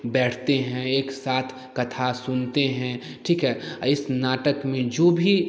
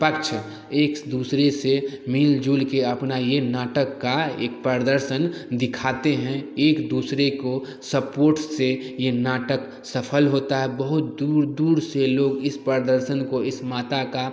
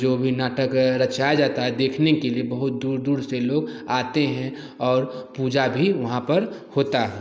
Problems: none marked